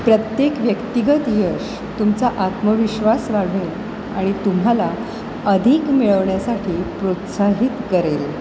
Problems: constant background noise